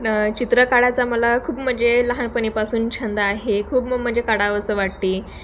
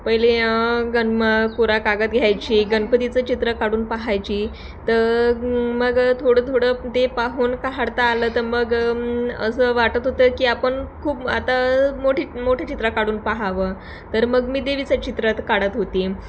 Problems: background sounds at intervals, background conversations at intervals